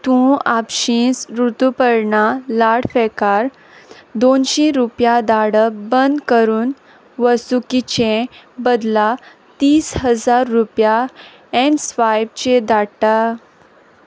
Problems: none marked